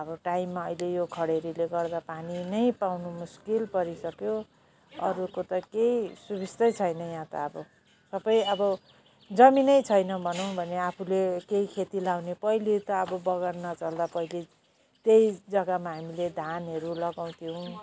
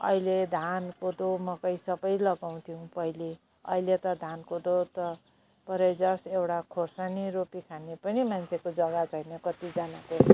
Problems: constant background noise